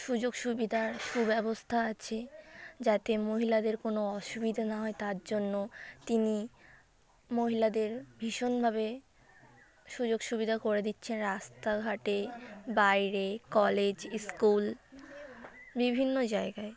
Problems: constant background noise